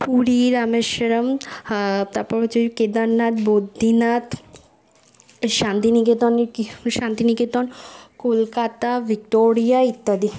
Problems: constant background noise, background conversations at intervals